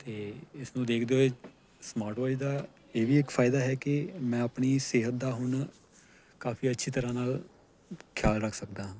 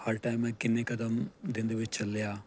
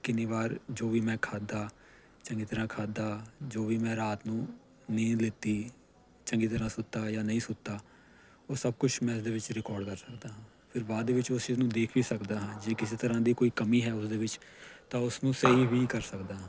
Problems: none marked